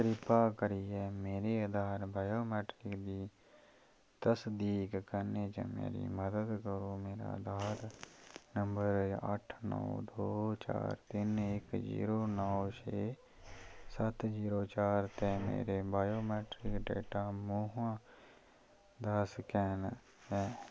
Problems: low volume